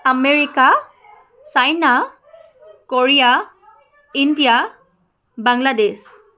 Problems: continuous background conversations